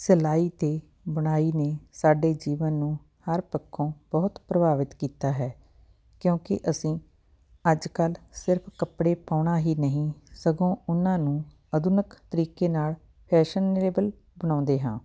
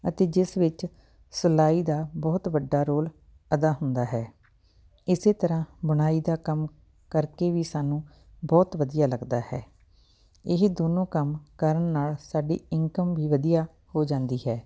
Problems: background sounds at intervals